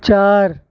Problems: constant background noise, low volume